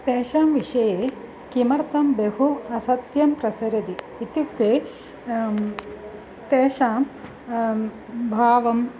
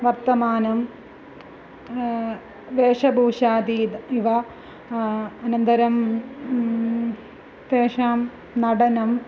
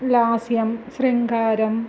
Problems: none marked